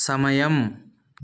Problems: none marked